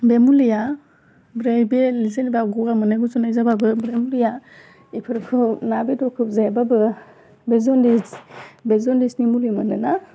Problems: low volume